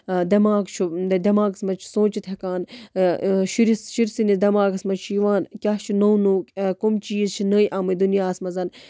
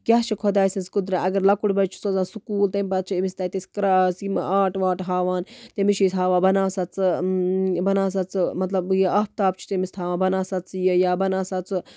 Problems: none marked